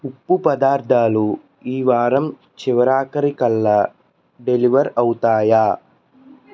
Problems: constant background noise